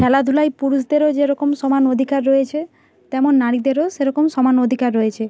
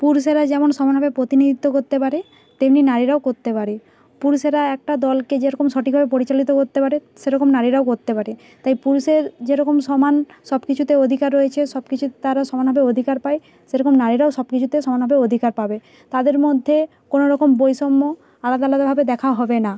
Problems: background sounds at intervals